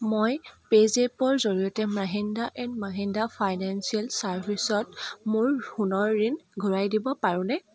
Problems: background sounds at intervals